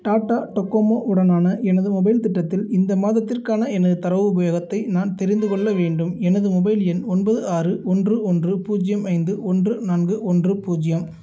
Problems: background sounds at intervals